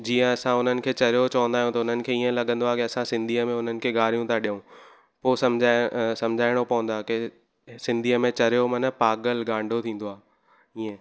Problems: constant background noise